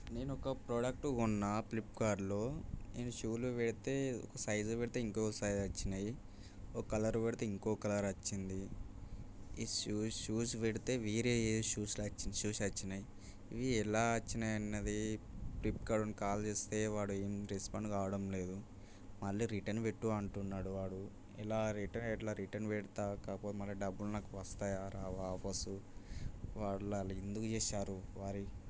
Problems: background sounds at intervals, low volume